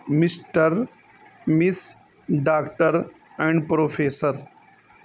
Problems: constant background noise